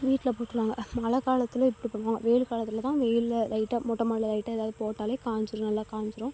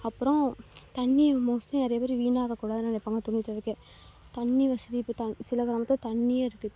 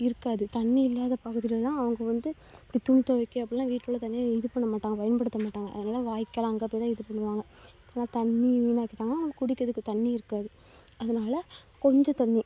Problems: low volume